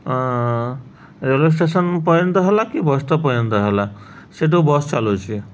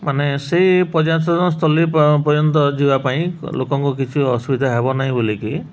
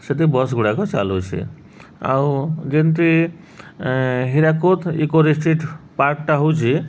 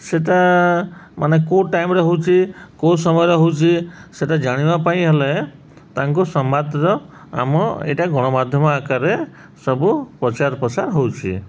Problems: none marked